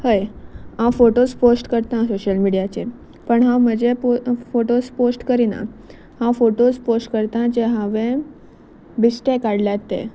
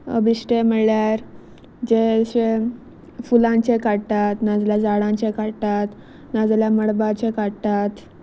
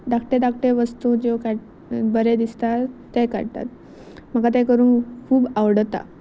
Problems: none marked